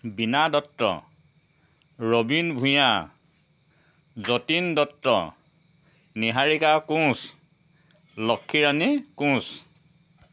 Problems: constant background noise